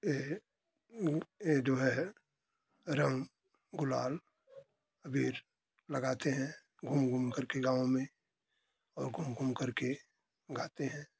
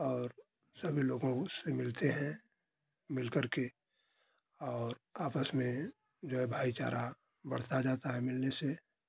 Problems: constant background noise